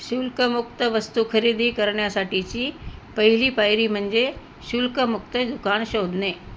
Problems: constant background noise